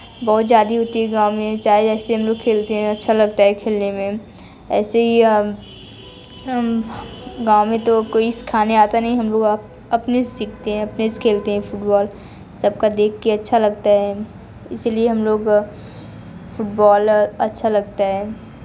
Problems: continuous background conversations